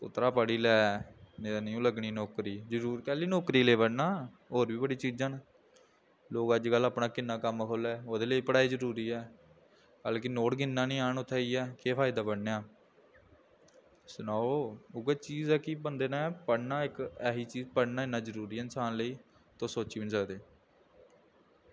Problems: low volume